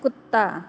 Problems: constant background noise, echo